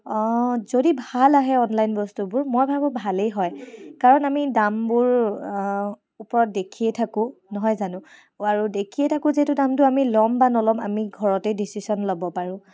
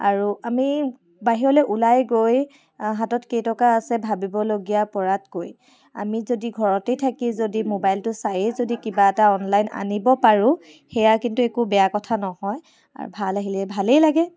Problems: none marked